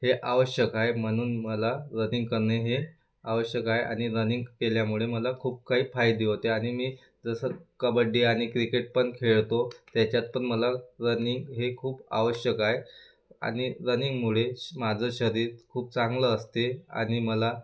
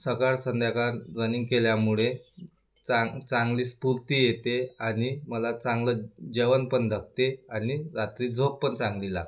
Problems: constant background noise